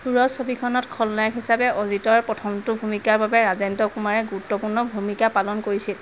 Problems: constant background noise